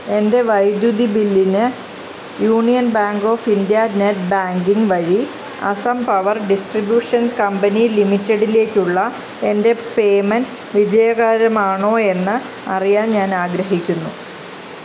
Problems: constant background noise